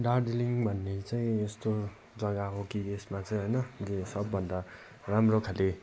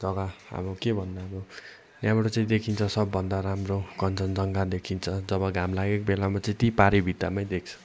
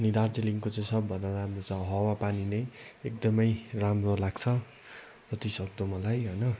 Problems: none marked